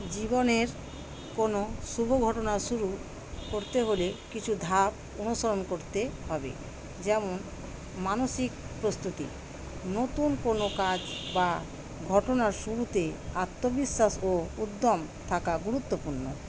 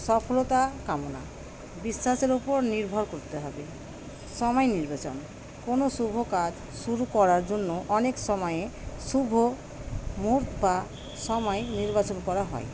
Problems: constant background noise